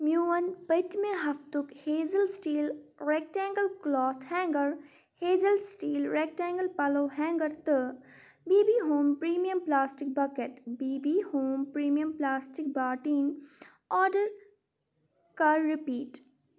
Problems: none marked